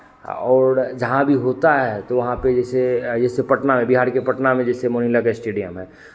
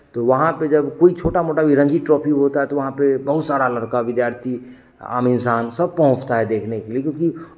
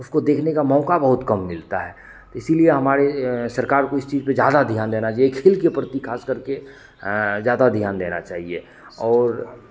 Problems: none marked